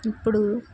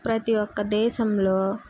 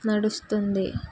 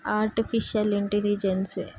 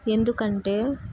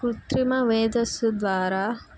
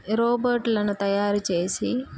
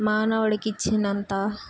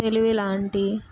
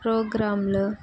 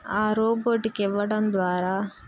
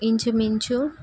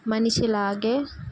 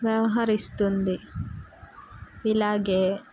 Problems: none marked